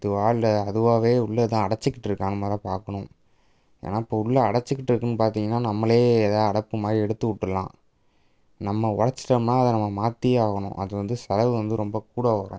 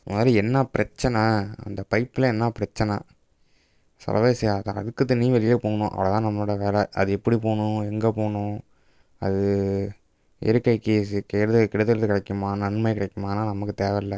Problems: none marked